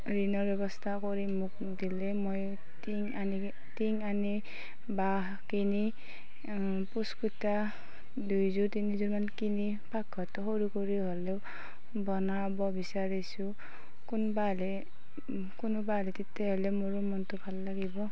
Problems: constant background noise